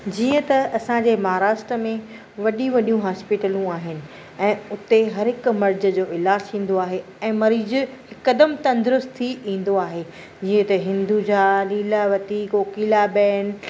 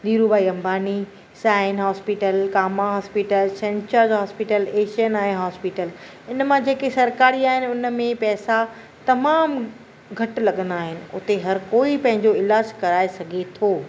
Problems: none marked